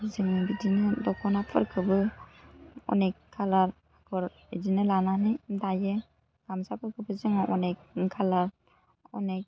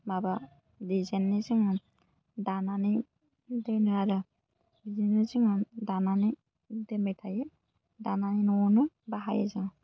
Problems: low volume